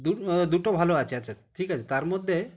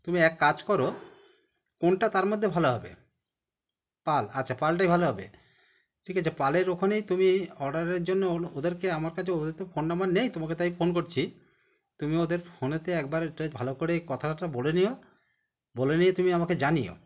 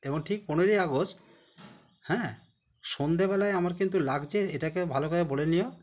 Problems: constant background noise